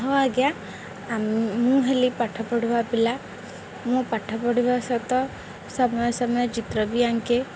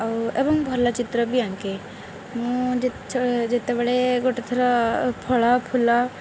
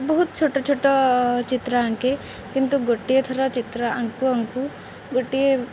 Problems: none marked